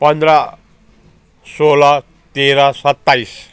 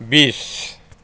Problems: continuous background conversations